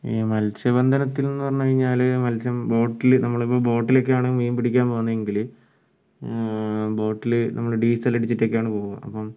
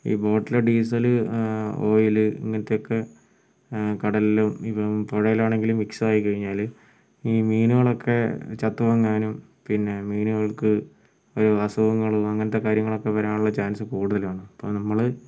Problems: low volume